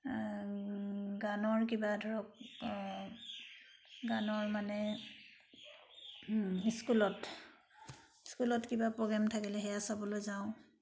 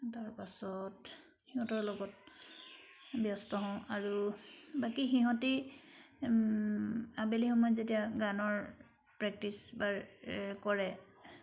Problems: background sounds at intervals